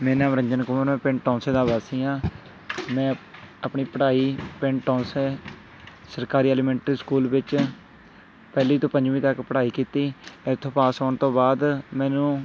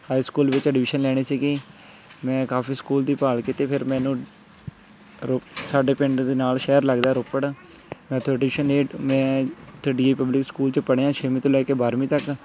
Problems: constant background noise, continuous background conversations